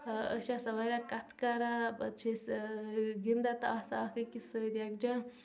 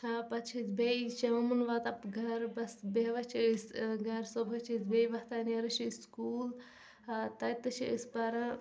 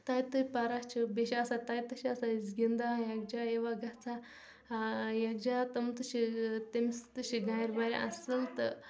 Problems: background sounds at intervals, background conversations at intervals, low volume